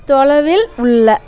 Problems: background sounds at intervals, background conversations at intervals